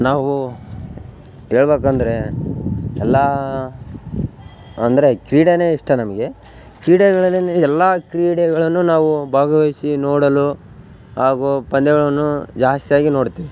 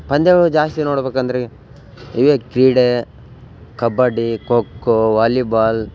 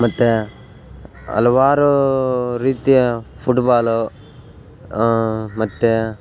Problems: none marked